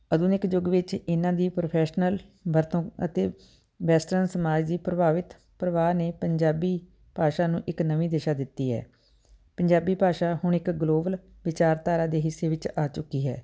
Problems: none marked